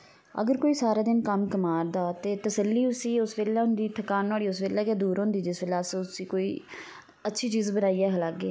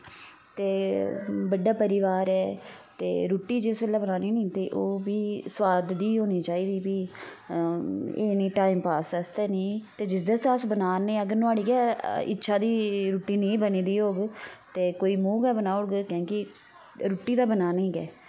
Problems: constant background noise